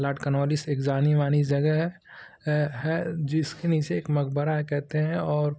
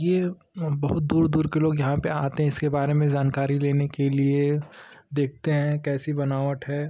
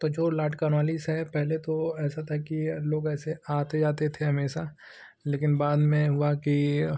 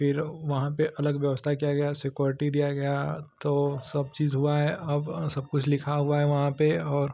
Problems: none marked